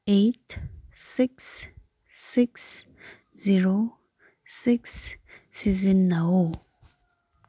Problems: none marked